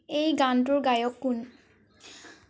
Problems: none marked